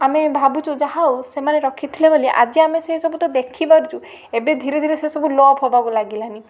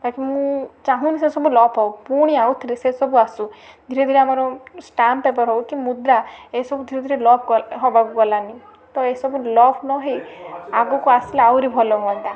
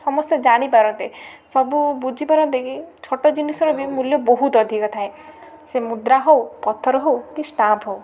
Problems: constant background noise